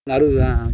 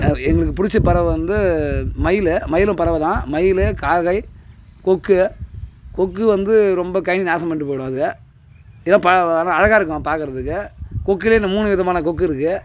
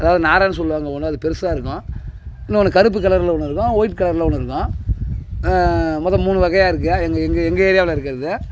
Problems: constant background noise, background conversations at intervals